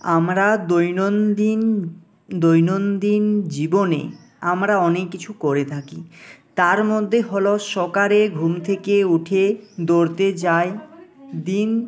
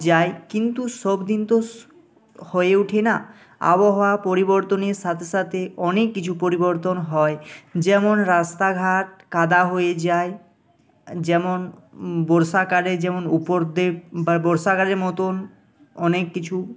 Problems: constant background noise